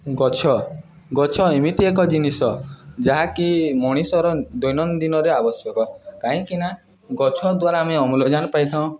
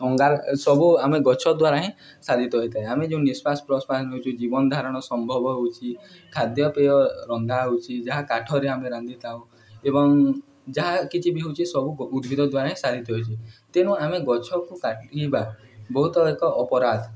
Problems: background conversations at intervals